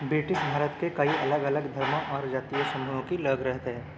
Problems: constant background noise